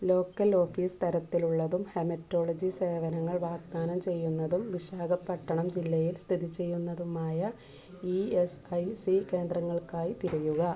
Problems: background sounds at intervals